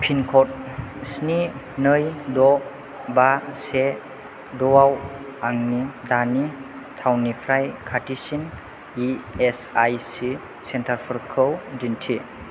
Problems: none marked